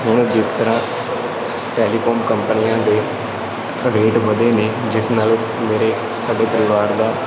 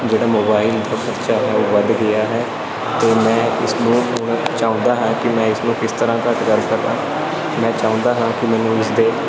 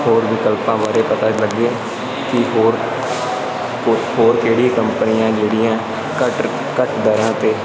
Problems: constant background noise